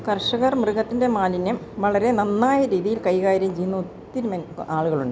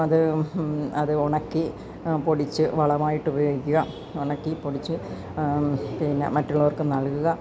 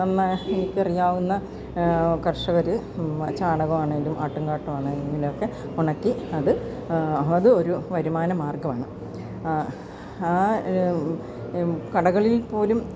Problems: background sounds at intervals